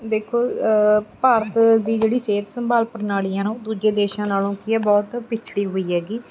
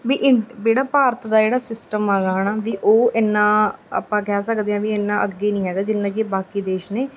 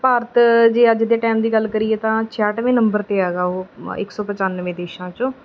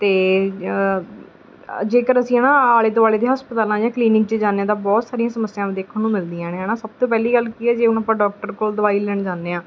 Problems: background sounds at intervals